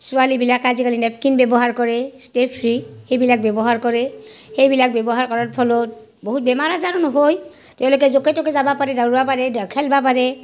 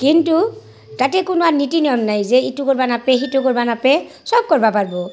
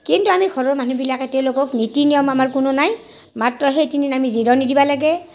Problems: background sounds at intervals, background conversations at intervals